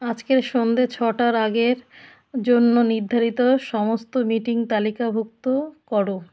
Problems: constant background noise